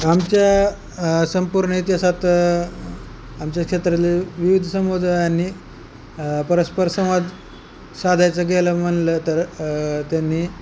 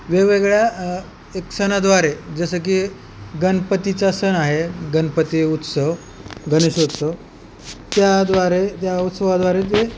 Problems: none marked